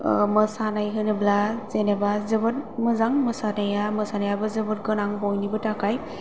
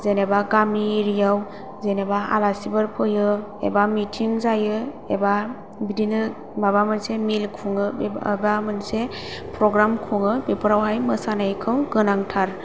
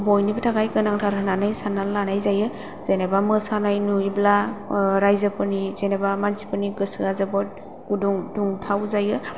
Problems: low volume